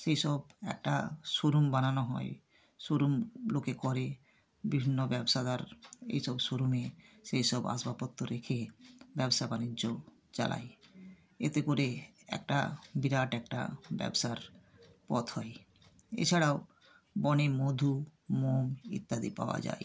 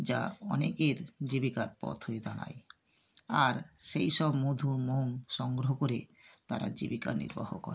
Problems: background sounds at intervals